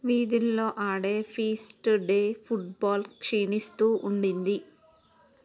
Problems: none marked